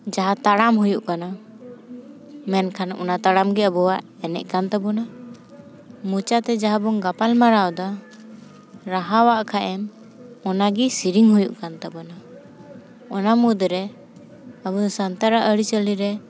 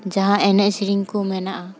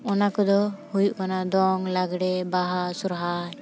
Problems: constant background noise